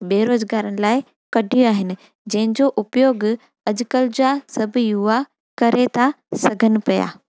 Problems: none marked